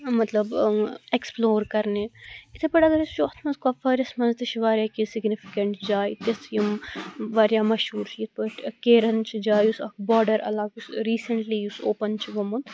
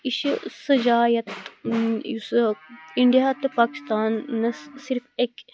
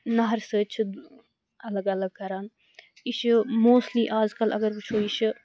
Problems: constant background noise